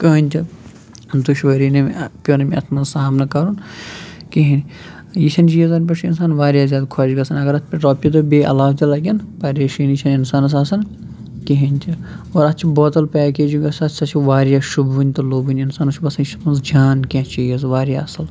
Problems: background sounds at intervals